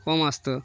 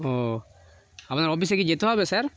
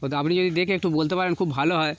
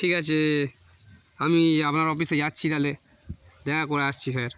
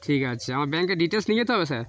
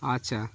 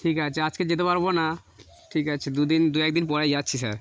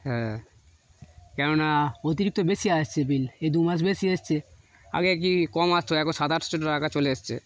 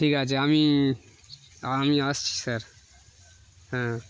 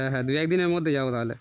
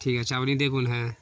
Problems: background sounds at intervals